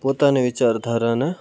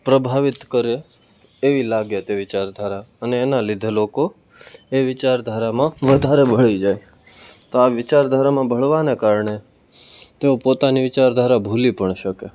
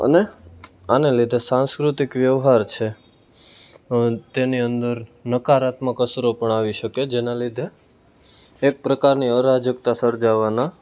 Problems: none marked